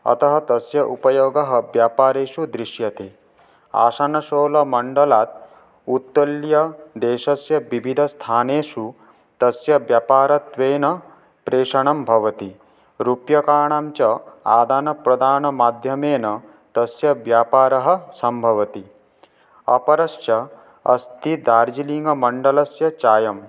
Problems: none marked